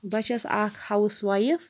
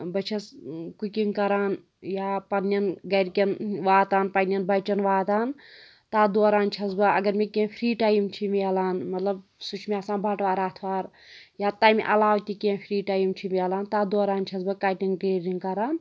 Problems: background sounds at intervals